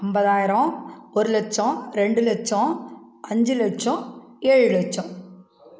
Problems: none marked